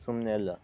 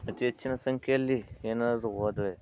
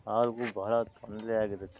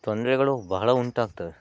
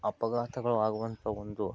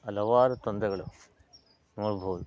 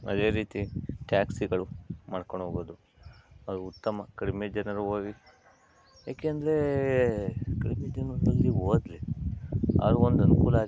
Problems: background sounds at intervals, low volume